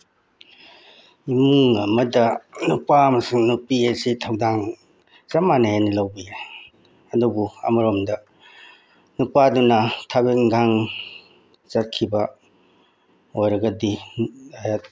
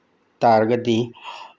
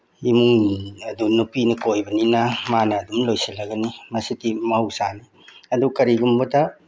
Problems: none marked